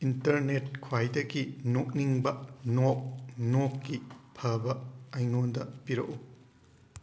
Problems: background sounds at intervals